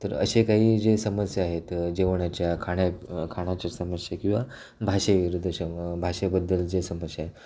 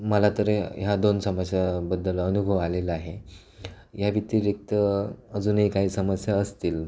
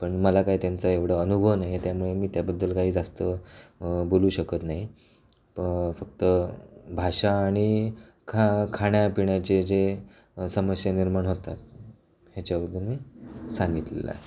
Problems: constant background noise, continuous background conversations